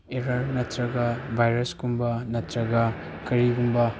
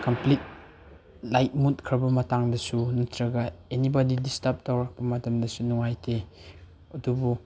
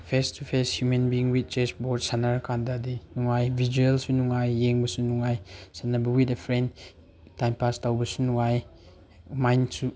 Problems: background sounds at intervals